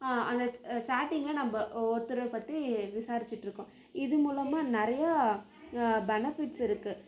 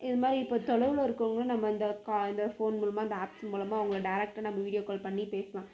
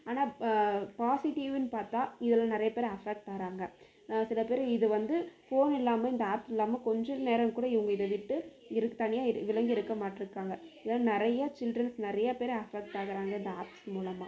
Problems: none marked